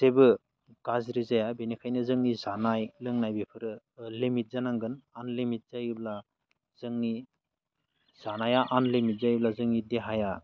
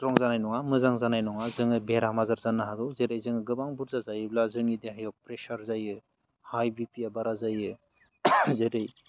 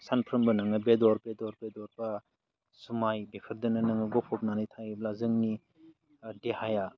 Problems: constant background noise